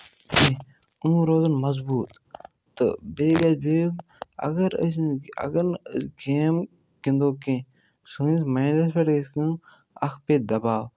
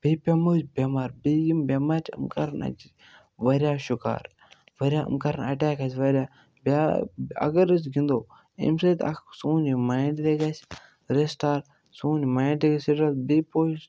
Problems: none marked